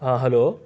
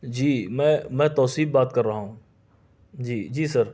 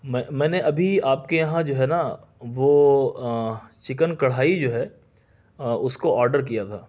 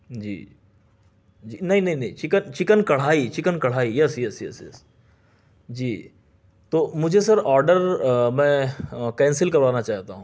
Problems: none marked